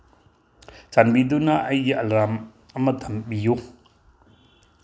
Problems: background sounds at intervals